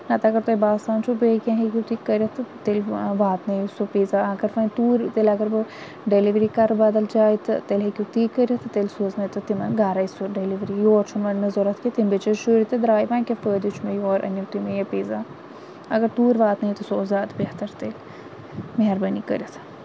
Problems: constant background noise